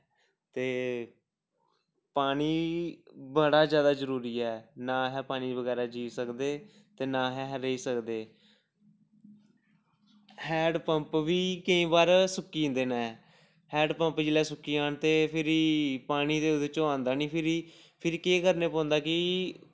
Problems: background sounds at intervals